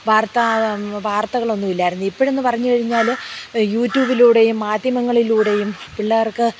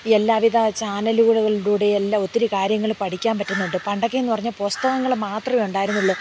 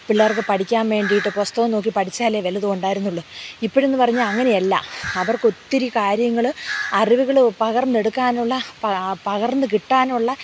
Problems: background sounds at intervals, background conversations at intervals